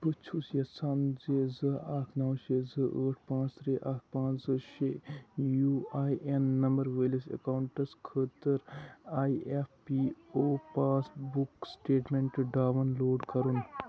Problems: constant background noise, background conversations at intervals, low volume